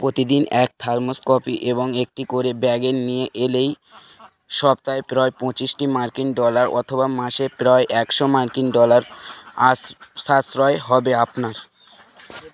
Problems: constant background noise